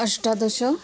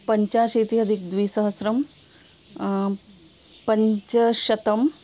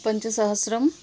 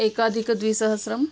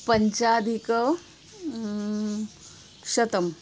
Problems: none marked